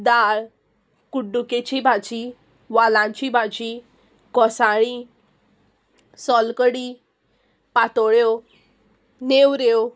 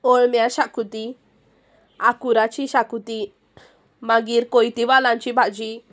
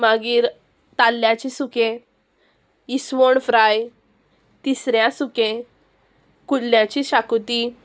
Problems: constant background noise